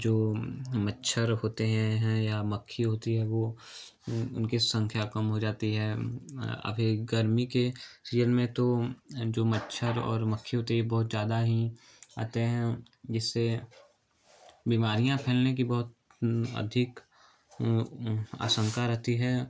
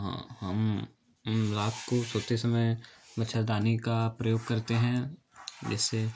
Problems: none marked